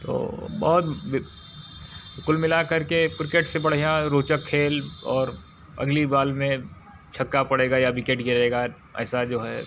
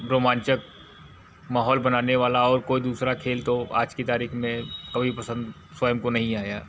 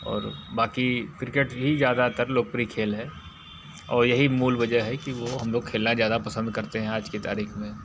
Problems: none marked